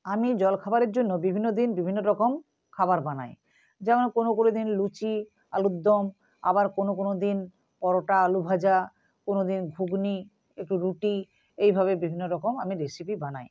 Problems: constant background noise